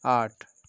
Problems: constant background noise